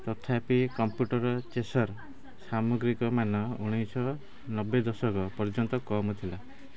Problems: background sounds at intervals, background conversations at intervals